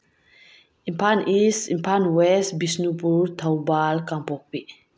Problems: background sounds at intervals